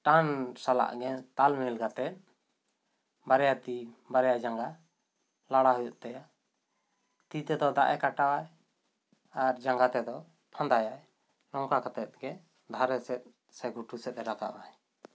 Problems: none marked